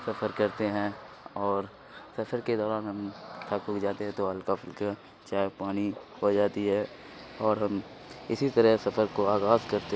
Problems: constant background noise